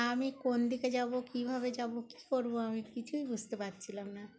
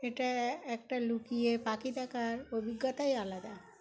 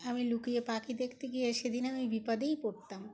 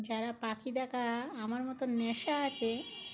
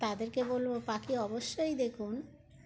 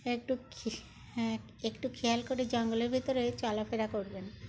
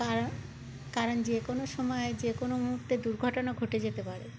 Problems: constant background noise, background conversations at intervals